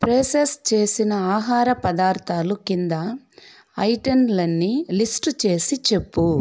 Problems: constant background noise